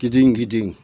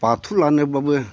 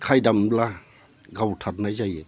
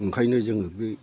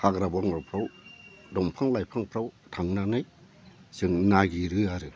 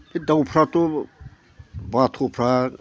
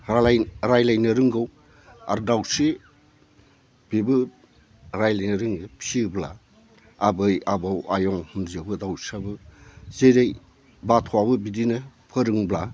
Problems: low volume